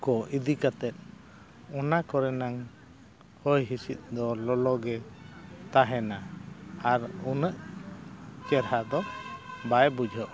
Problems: constant background noise